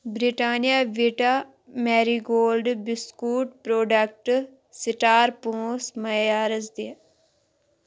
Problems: none marked